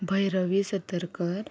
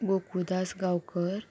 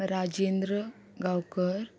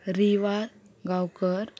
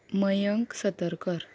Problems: constant background noise